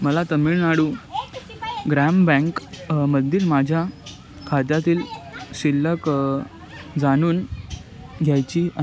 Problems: constant background noise